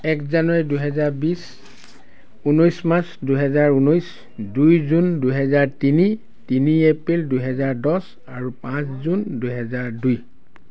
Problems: none marked